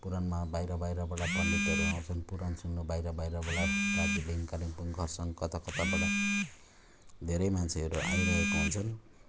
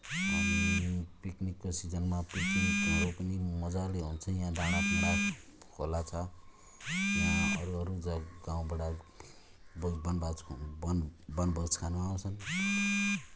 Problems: background sounds at intervals